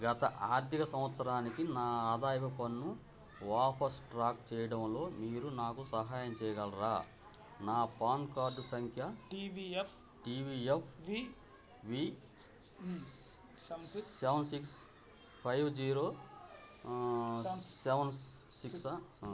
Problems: continuous background conversations